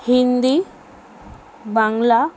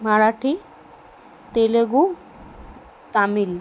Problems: constant background noise